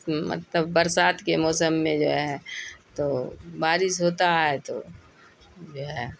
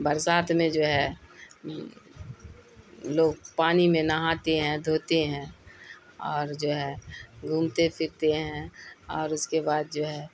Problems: constant background noise